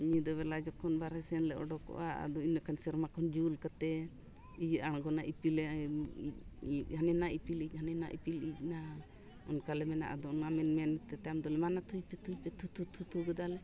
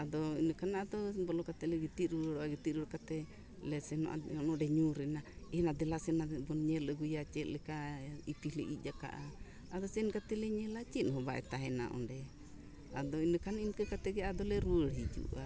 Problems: constant background noise, background conversations at intervals